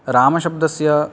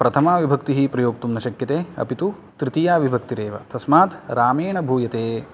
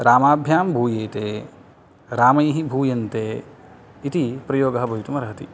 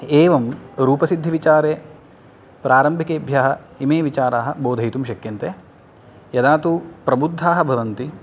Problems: none marked